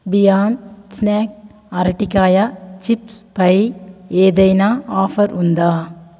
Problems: none marked